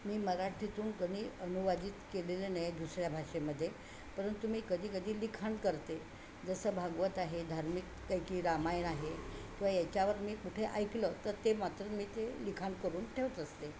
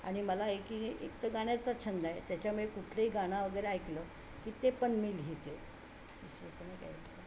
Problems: constant background noise